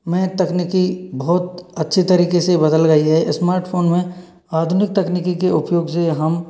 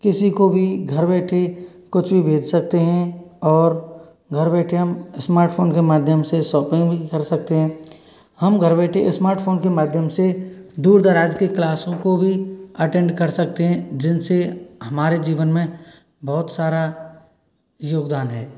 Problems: background sounds at intervals